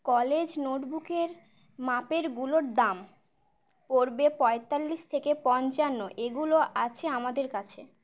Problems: none marked